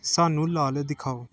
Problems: background sounds at intervals